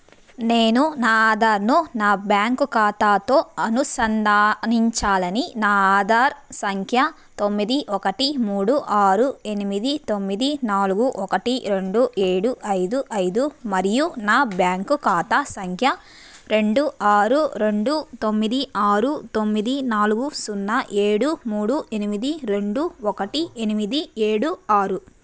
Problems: background sounds at intervals